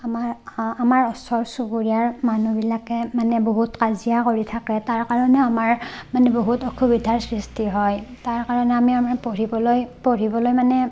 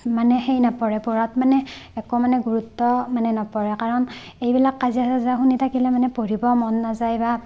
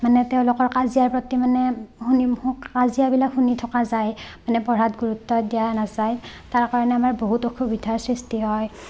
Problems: none marked